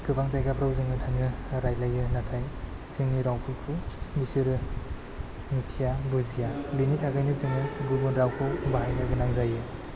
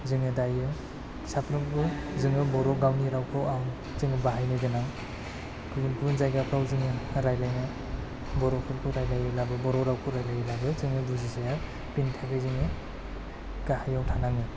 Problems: low volume